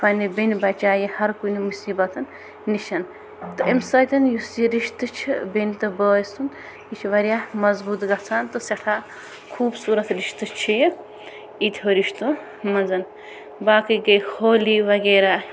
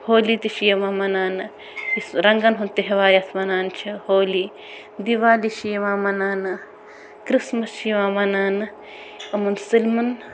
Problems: none marked